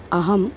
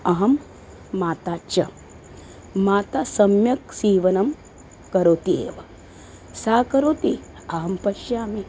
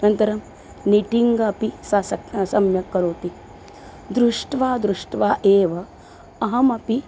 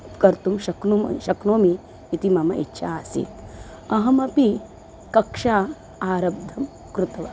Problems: constant background noise